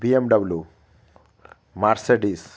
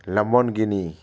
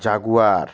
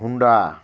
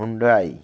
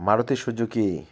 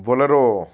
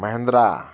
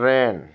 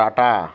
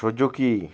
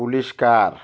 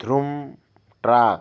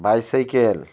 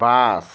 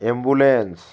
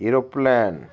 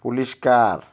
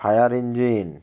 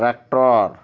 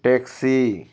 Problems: constant background noise